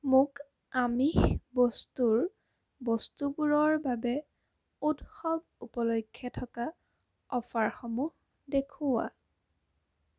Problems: constant background noise